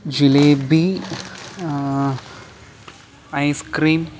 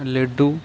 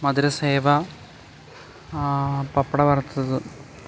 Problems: background sounds at intervals